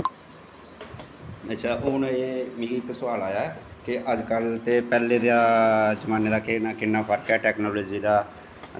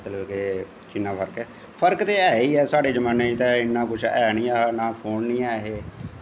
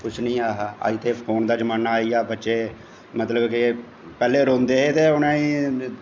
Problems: constant background noise, echo, low volume